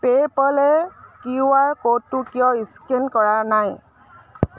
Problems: none marked